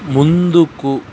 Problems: constant background noise